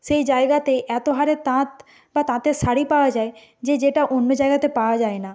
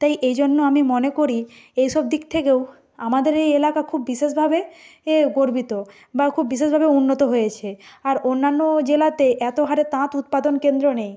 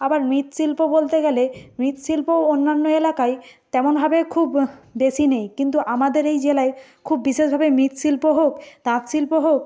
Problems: background sounds at intervals